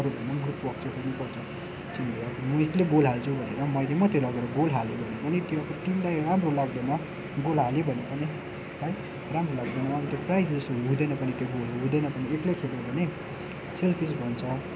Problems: constant background noise